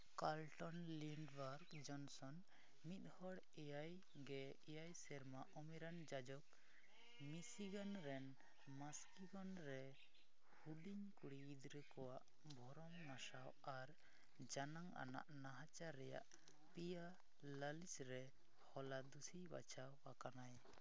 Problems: background sounds at intervals, low volume